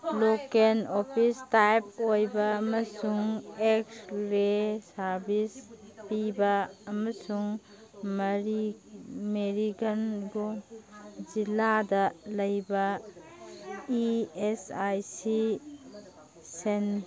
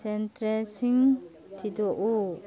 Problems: background sounds at intervals, background conversations at intervals